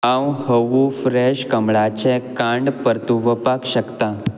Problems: constant background noise